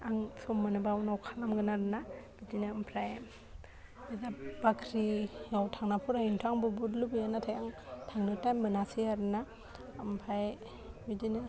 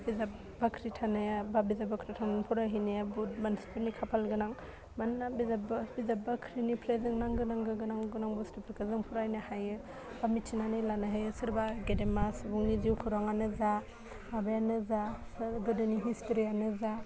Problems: constant background noise